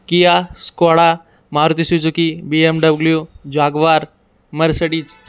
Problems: background sounds at intervals